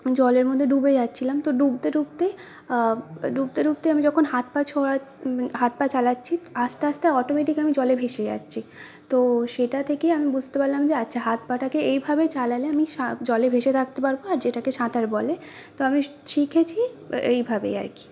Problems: none marked